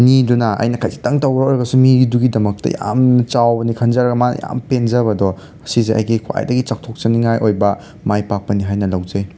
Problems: none marked